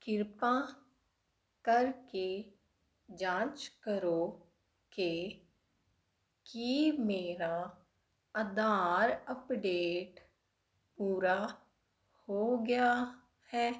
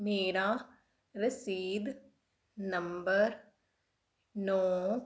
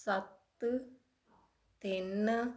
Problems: constant background noise